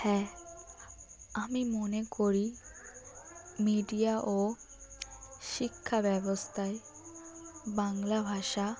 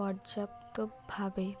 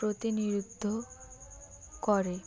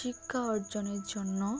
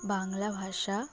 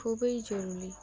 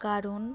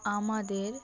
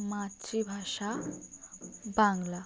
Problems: background sounds at intervals